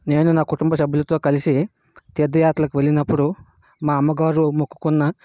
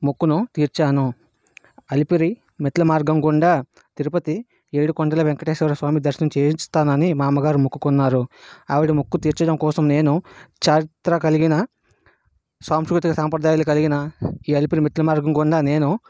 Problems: none marked